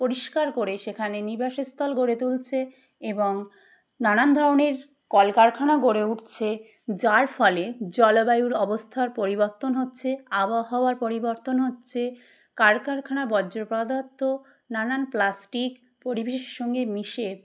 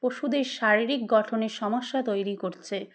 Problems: none marked